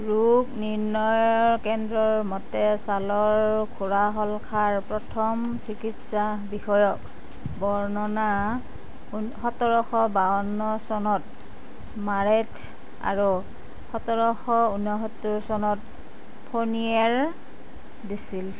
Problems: constant background noise